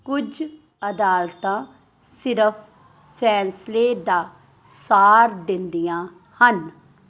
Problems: background sounds at intervals